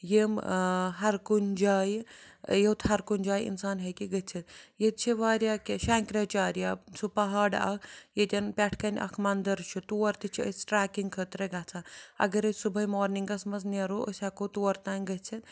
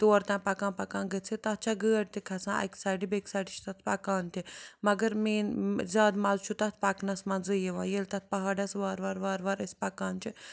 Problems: none marked